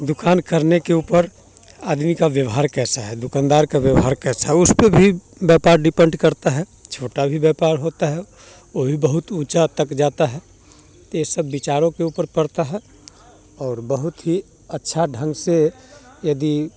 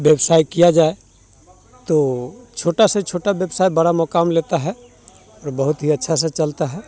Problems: background sounds at intervals